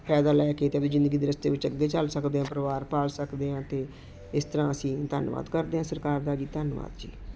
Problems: constant background noise